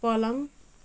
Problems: none marked